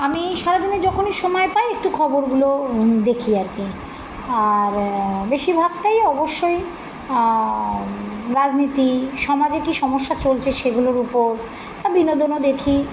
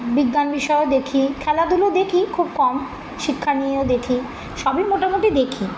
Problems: constant background noise